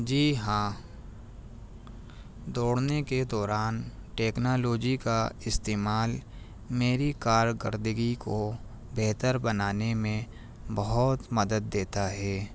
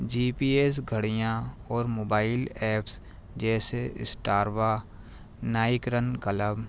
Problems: none marked